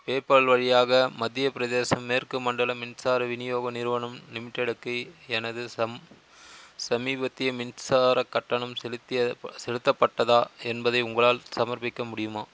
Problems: constant background noise